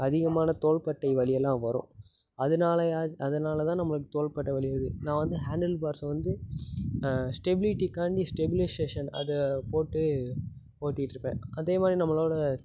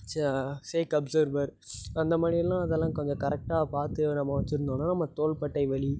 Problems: constant background noise